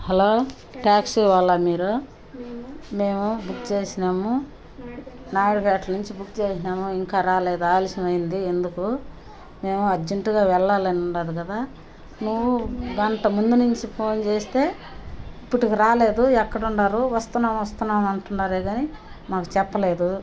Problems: none marked